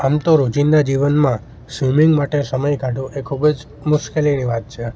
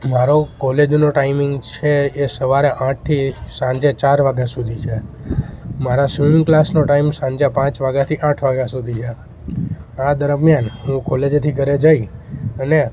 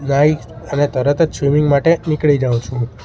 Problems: constant background noise